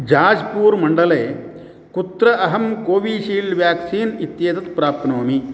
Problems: constant background noise